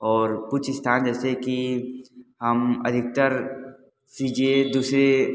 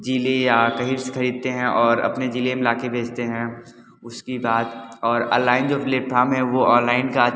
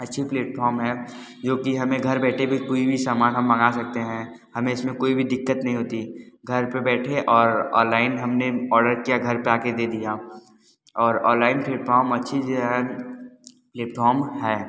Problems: none marked